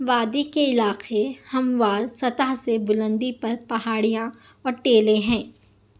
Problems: none marked